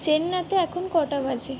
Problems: background sounds at intervals